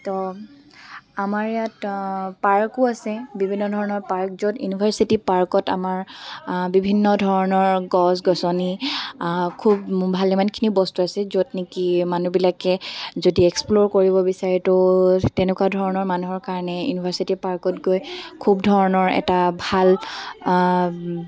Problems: background sounds at intervals